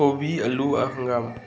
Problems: background sounds at intervals